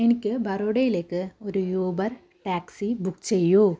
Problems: low volume